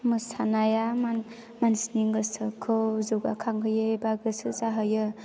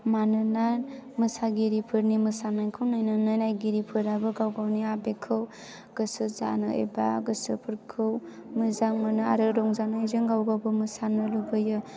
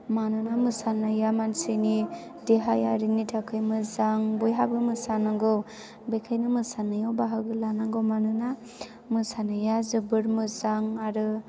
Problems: none marked